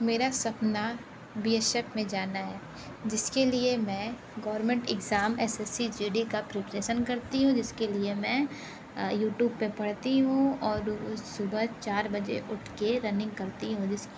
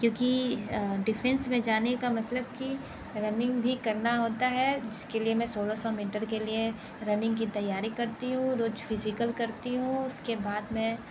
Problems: constant background noise